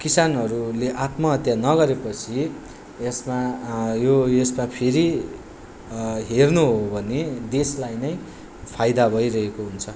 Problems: none marked